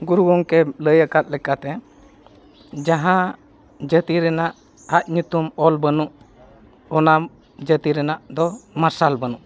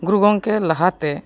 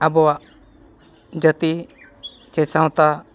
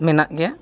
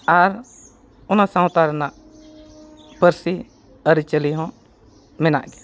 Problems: background sounds at intervals